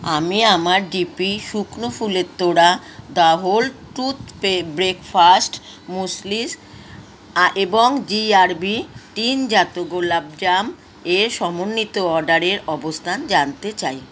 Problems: none marked